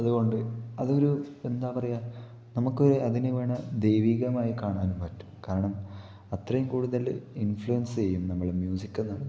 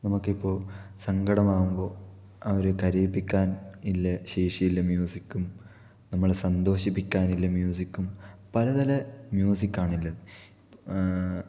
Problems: low volume